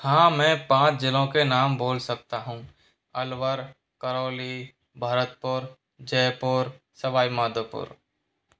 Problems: background sounds at intervals